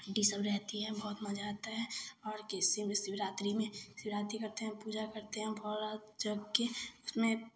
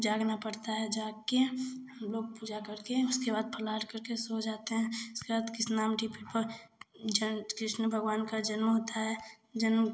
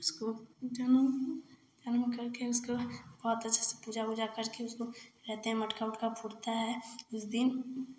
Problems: constant background noise